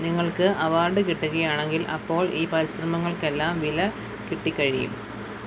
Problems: constant background noise, low volume